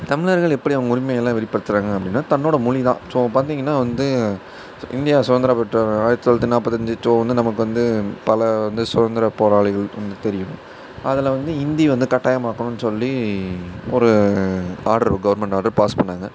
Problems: none marked